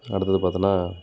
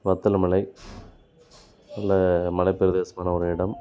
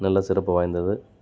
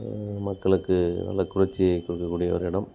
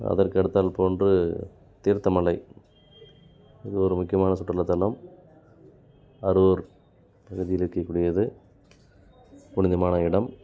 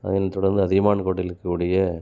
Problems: none marked